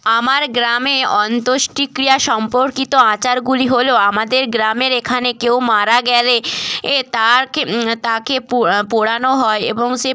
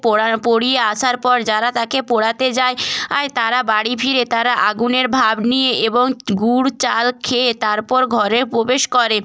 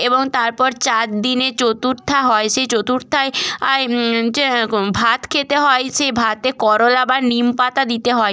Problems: background sounds at intervals